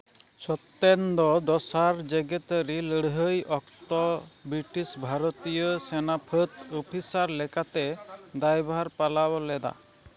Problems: background sounds at intervals, background conversations at intervals